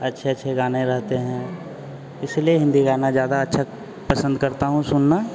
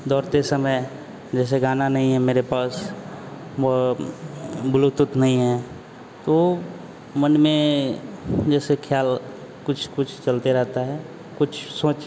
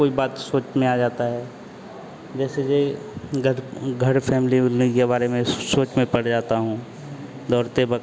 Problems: constant background noise